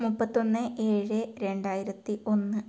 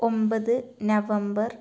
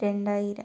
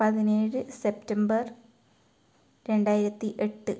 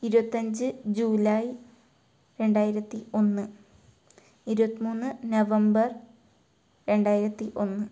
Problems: low volume